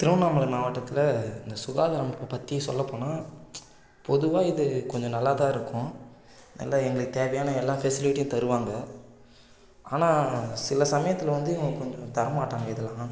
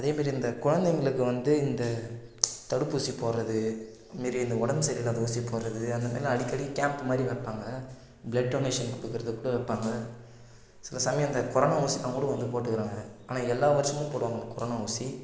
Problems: constant background noise, low volume